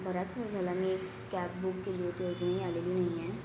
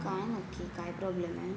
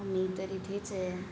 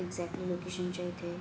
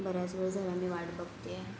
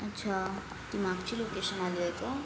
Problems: constant background noise